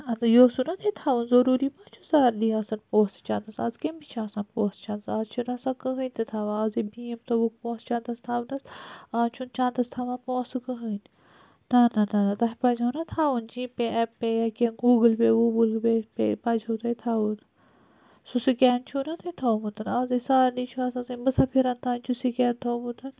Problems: none marked